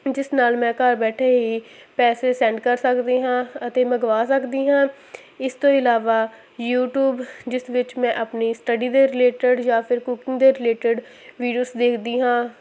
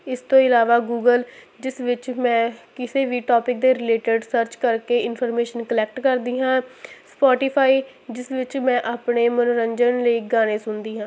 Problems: constant background noise